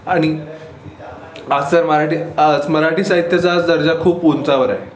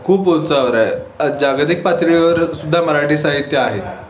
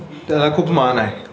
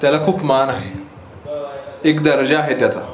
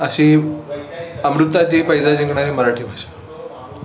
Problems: constant background noise, background conversations at intervals